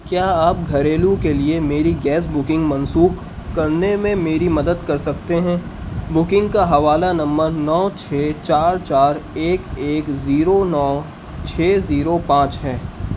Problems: constant background noise